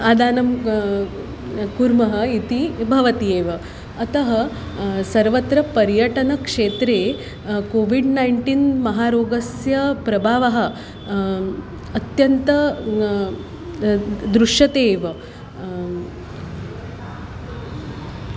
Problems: none marked